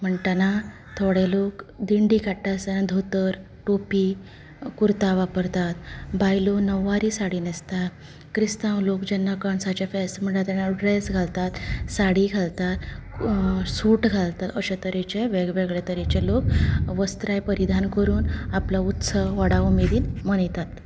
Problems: none marked